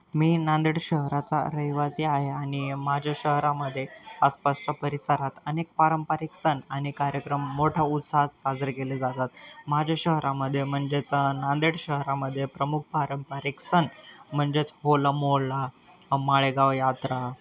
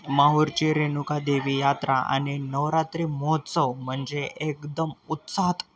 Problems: constant background noise, continuous background conversations